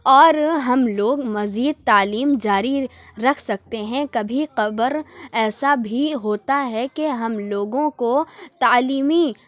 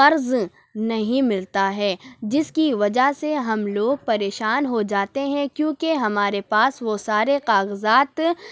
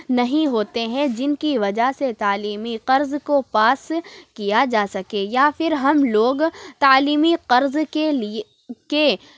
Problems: none marked